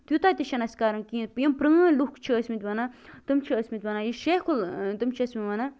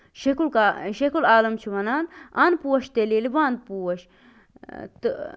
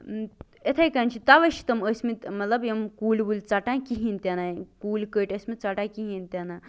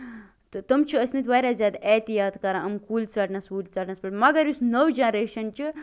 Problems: constant background noise